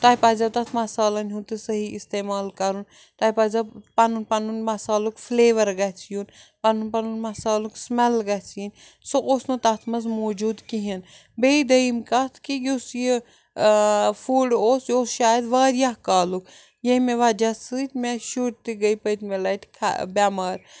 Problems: background sounds at intervals